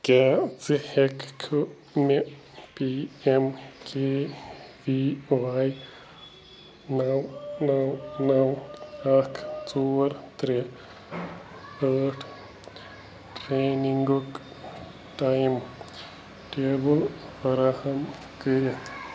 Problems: constant background noise